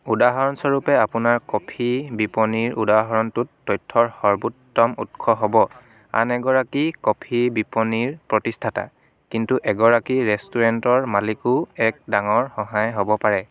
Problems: continuous background conversations